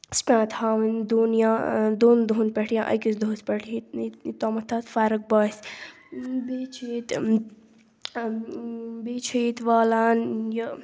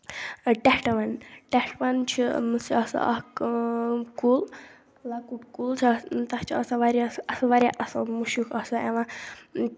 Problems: low volume